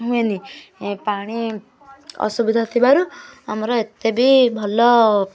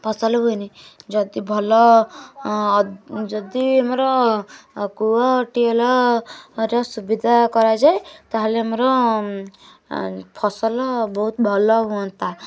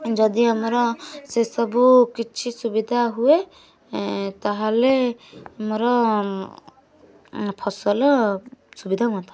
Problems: constant background noise, continuous background conversations